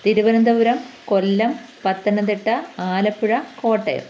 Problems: constant background noise